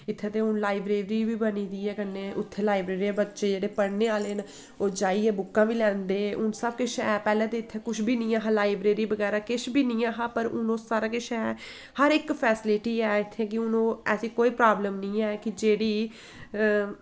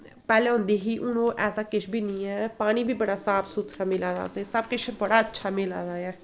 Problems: echo